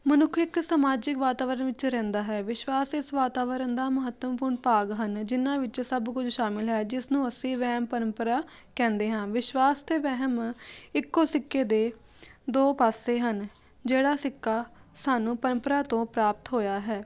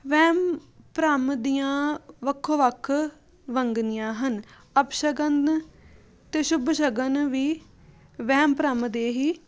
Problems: none marked